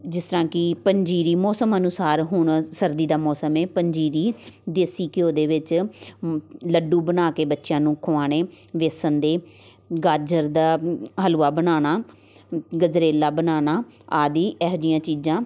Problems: constant background noise, background conversations at intervals